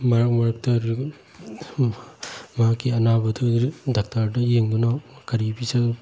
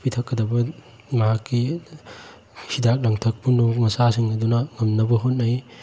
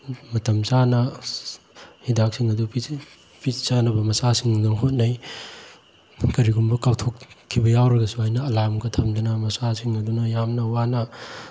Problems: none marked